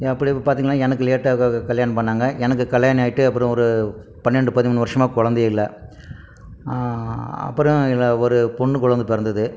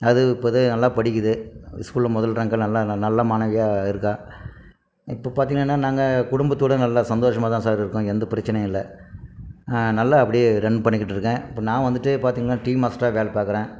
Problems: none marked